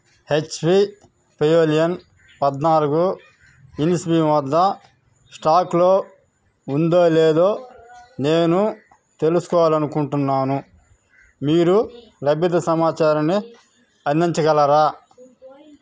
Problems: background conversations at intervals